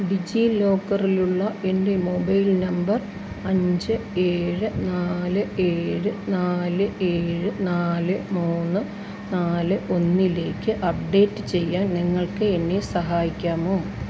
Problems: constant background noise